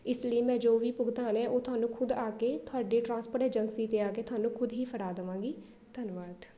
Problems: background sounds at intervals, background conversations at intervals